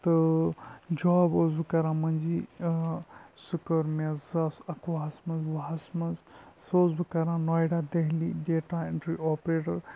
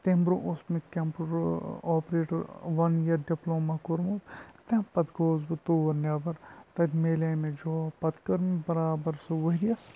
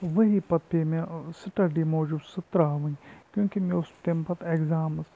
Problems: background sounds at intervals, low volume